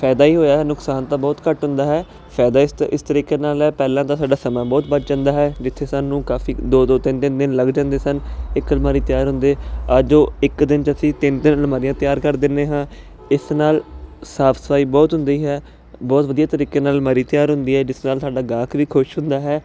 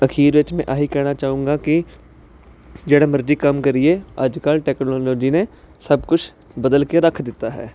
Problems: constant background noise